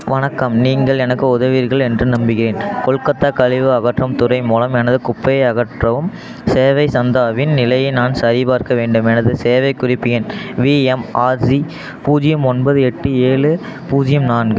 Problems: background conversations at intervals